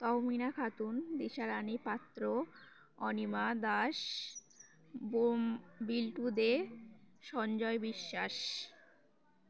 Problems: none marked